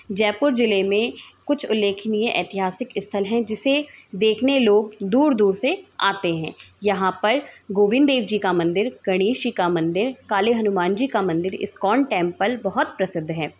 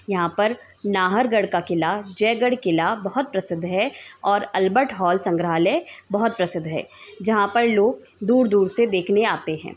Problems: continuous background conversations